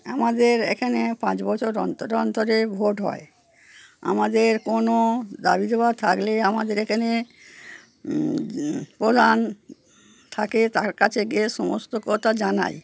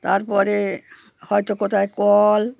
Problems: background sounds at intervals